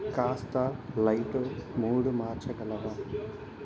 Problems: low volume